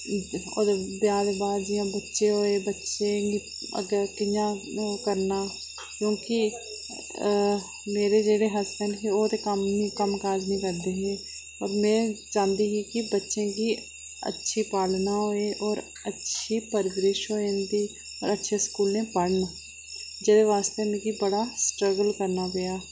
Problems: constant background noise